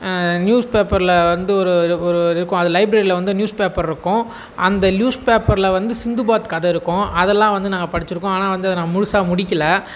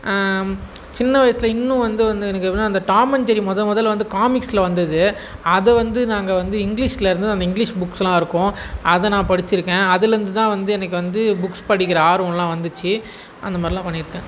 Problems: background sounds at intervals